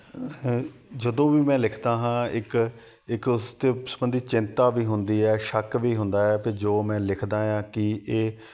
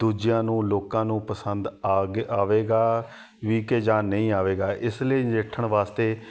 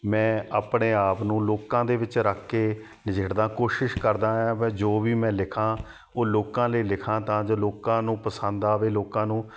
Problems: background sounds at intervals, background conversations at intervals